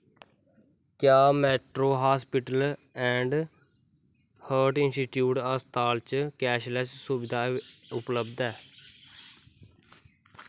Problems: background sounds at intervals